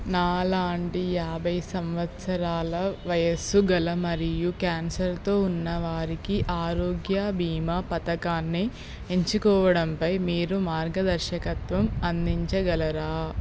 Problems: constant background noise